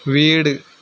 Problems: constant background noise